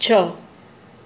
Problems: none marked